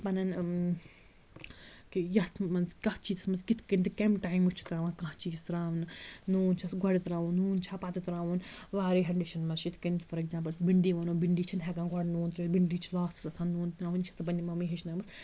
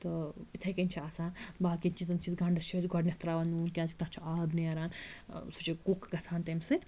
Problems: constant background noise